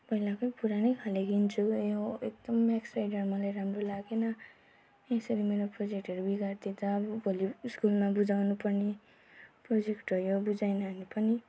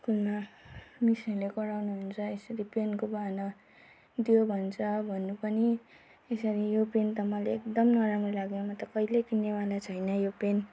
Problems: none marked